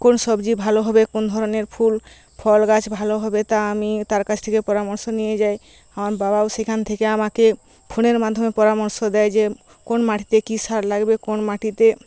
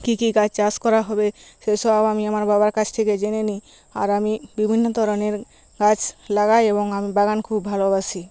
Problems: constant background noise